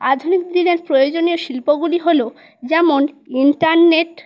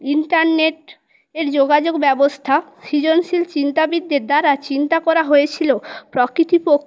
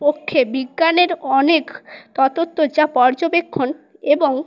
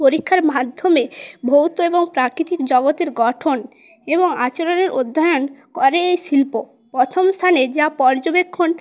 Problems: none marked